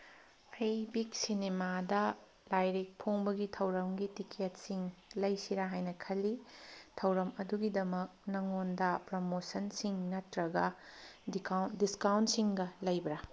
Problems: background sounds at intervals